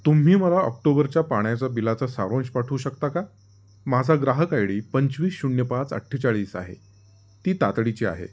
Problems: background sounds at intervals